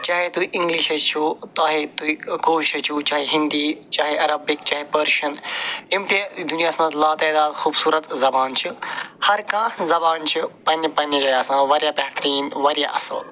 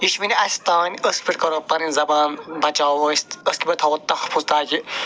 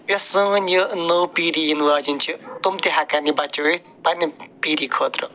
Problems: none marked